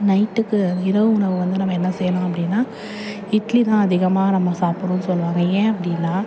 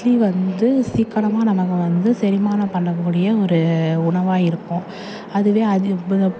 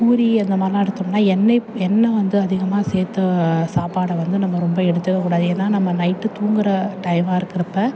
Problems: none marked